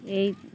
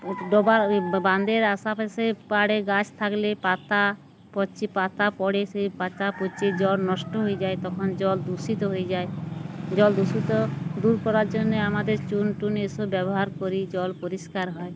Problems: none marked